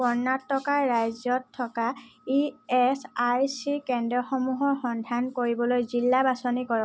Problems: background sounds at intervals